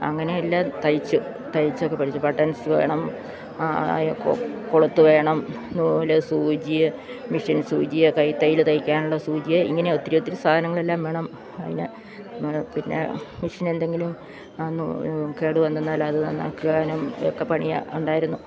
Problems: none marked